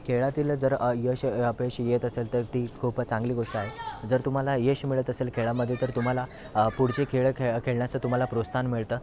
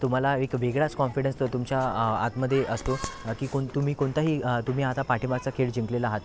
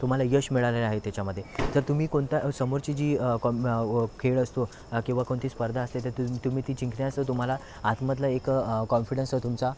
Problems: constant background noise, continuous background conversations